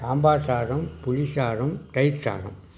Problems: constant background noise